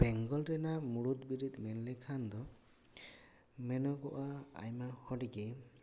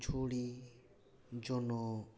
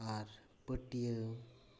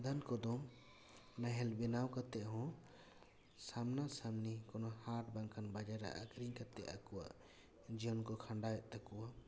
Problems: none marked